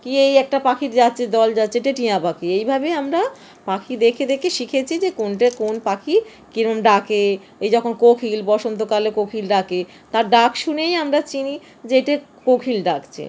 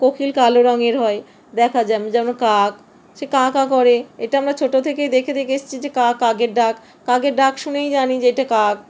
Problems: constant background noise